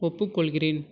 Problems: none marked